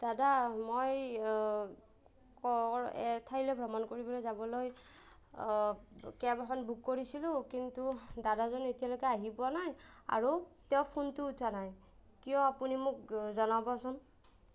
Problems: none marked